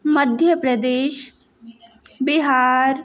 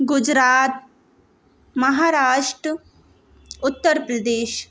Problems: constant background noise